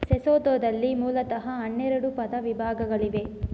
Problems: low volume